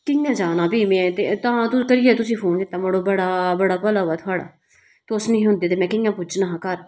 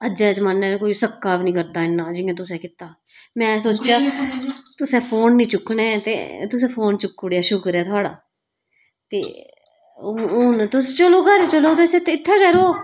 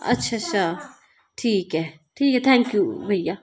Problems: background sounds at intervals